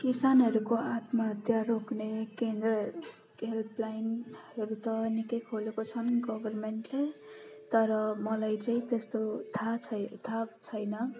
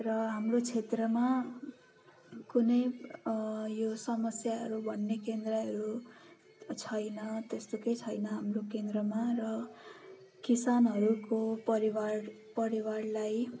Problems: constant background noise, continuous background conversations